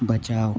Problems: constant background noise